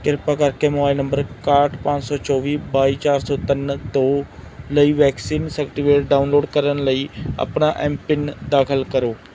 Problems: none marked